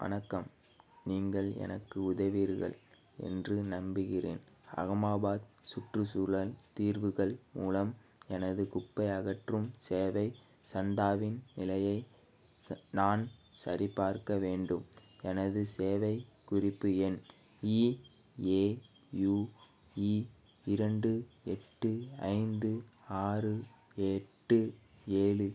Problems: background sounds at intervals